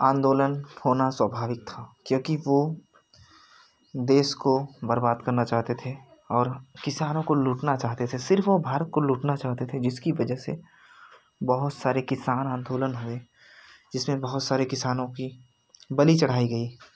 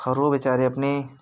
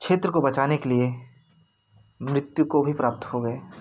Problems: constant background noise